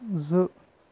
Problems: low volume